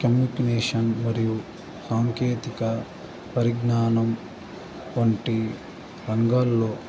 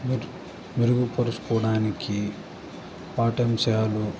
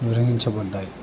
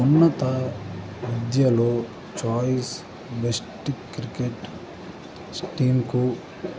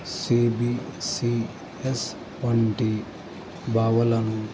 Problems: constant background noise